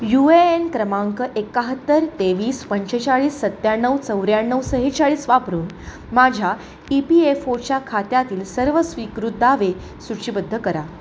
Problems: none marked